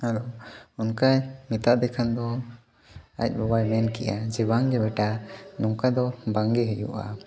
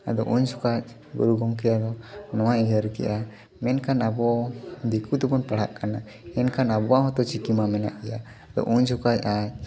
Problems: background sounds at intervals, continuous background conversations